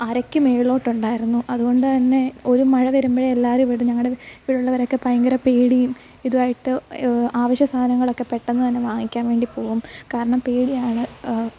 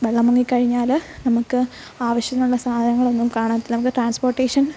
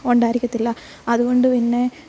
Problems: background sounds at intervals